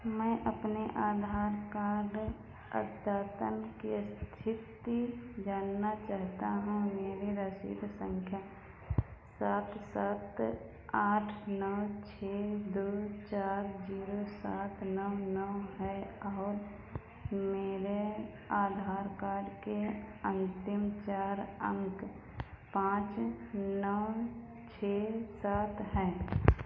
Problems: background sounds at intervals, echo